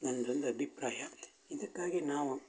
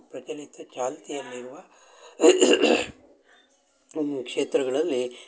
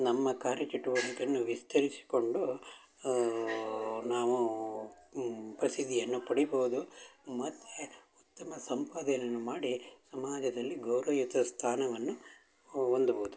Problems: background sounds at intervals, background conversations at intervals